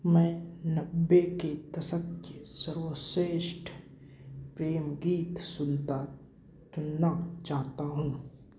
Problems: constant background noise